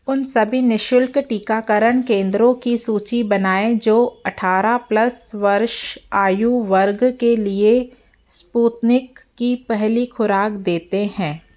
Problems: constant background noise, low volume